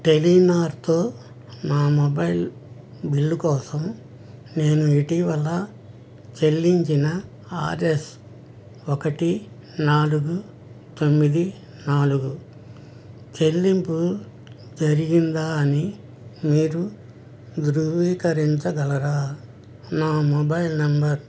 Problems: none marked